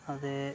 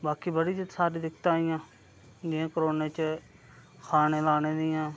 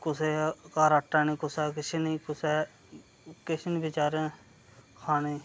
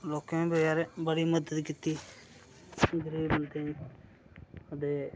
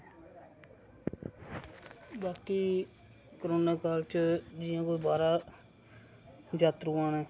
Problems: none marked